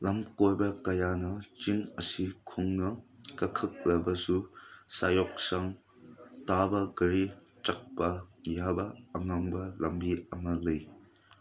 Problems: background conversations at intervals